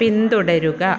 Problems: background sounds at intervals